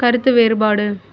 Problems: none marked